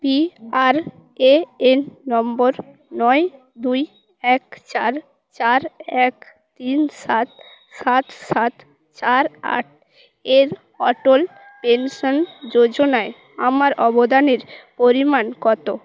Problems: background sounds at intervals